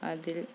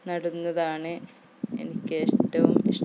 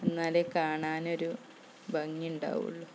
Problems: background sounds at intervals, low volume